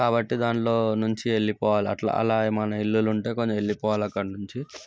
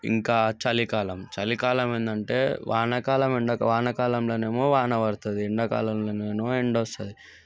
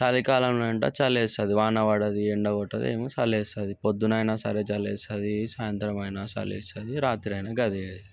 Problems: none marked